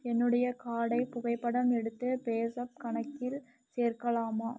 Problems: low volume